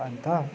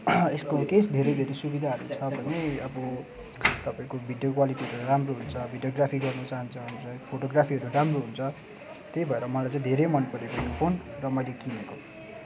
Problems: constant background noise